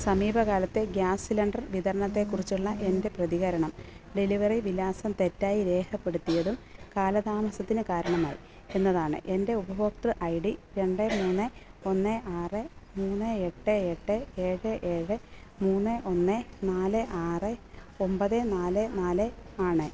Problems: constant background noise